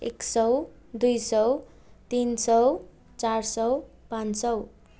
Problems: none marked